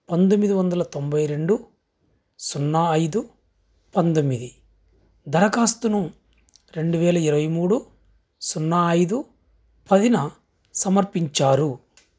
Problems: background sounds at intervals